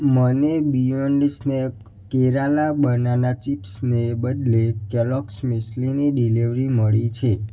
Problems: background sounds at intervals